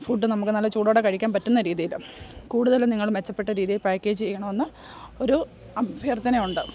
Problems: background sounds at intervals